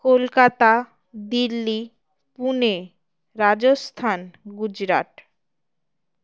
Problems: background sounds at intervals